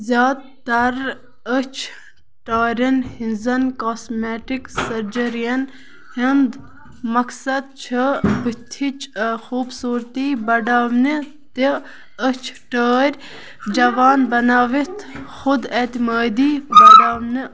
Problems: constant background noise